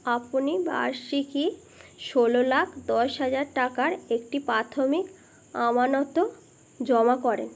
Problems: background sounds at intervals